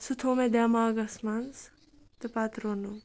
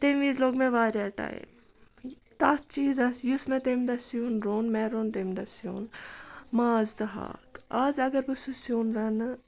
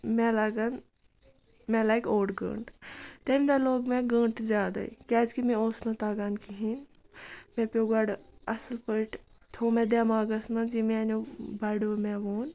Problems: none marked